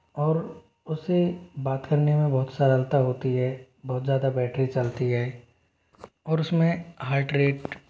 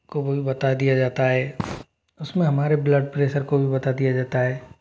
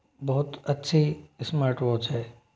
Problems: background sounds at intervals